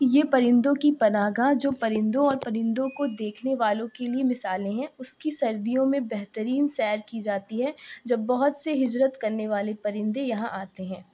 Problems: none marked